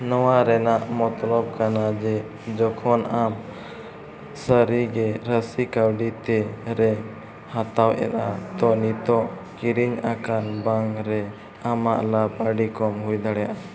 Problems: none marked